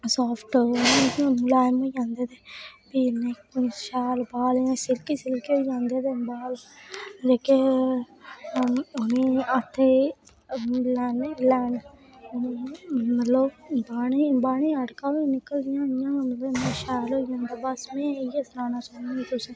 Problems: constant background noise